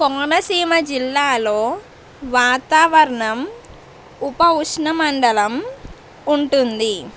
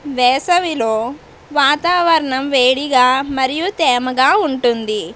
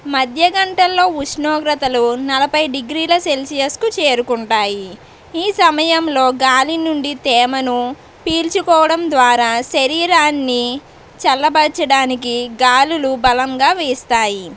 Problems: none marked